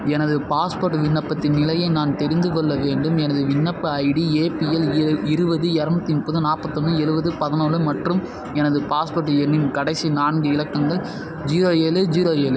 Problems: constant background noise